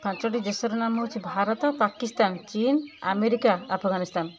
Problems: constant background noise, continuous background conversations